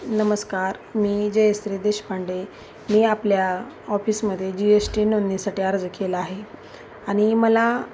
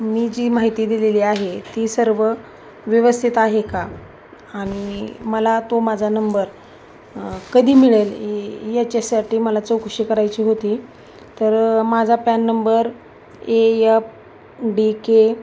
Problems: none marked